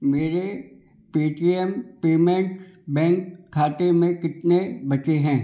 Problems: background sounds at intervals